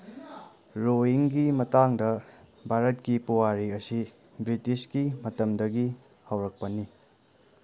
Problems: none marked